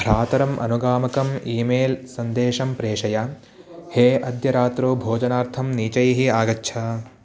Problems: none marked